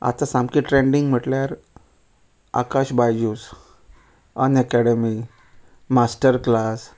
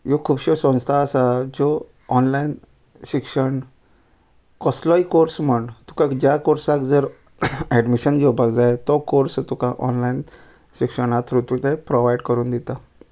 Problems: none marked